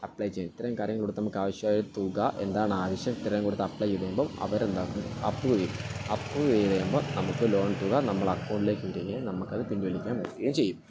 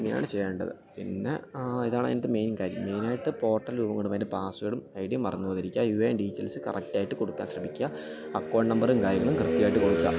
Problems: constant background noise, continuous background conversations, low volume